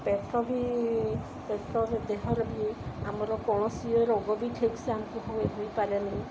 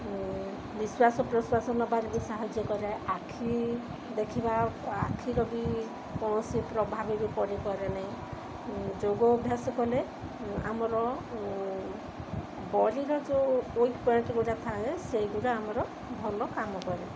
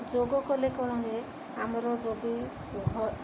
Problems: constant background noise